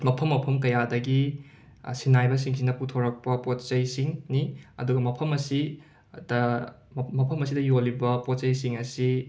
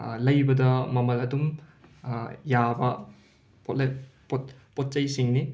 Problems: none marked